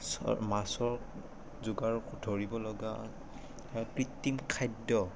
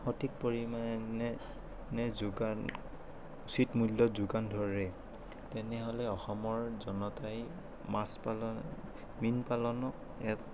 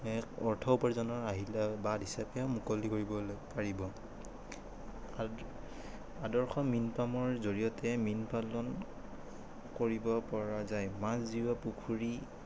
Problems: none marked